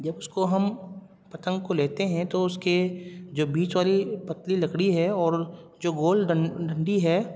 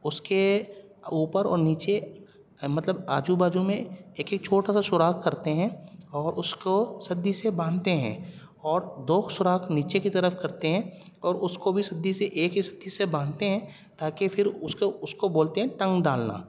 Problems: none marked